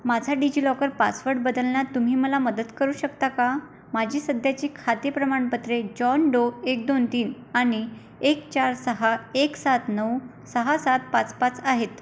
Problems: constant background noise